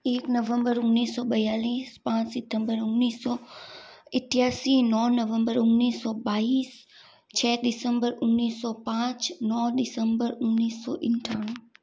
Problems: background sounds at intervals